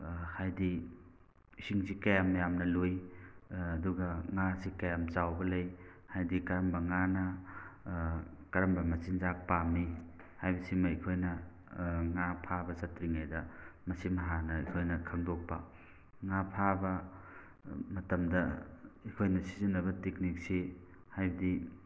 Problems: background sounds at intervals